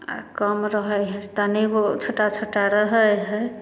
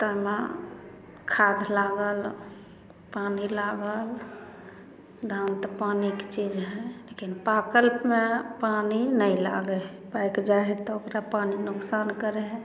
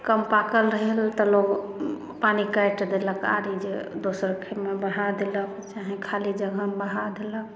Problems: none marked